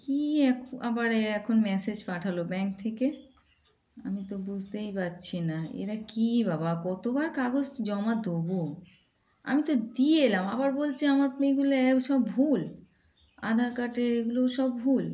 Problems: constant background noise, background conversations at intervals